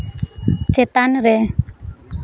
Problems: background sounds at intervals